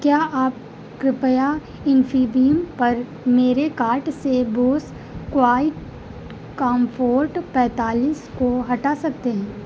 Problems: constant background noise